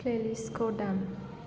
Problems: low volume